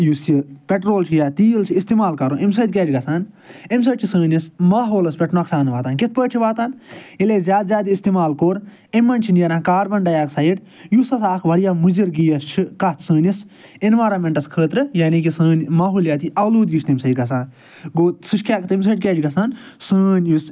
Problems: none marked